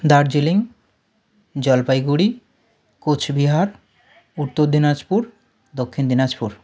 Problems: background conversations at intervals